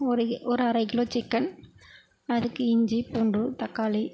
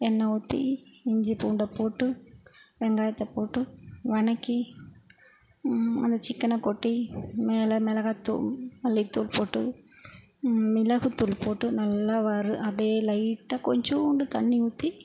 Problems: constant background noise